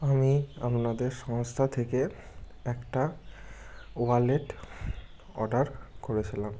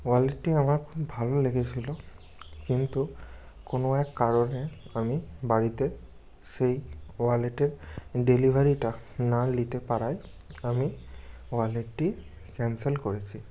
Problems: background sounds at intervals